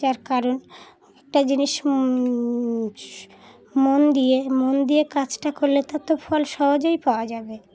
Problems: background sounds at intervals, continuous background conversations